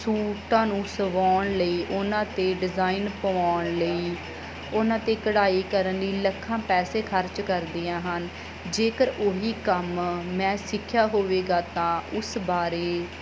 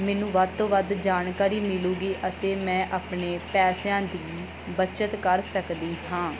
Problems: none marked